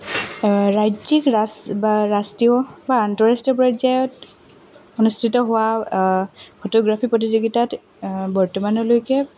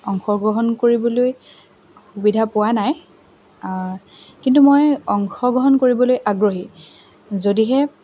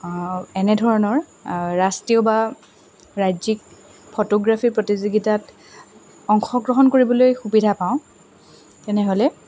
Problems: constant background noise, background conversations at intervals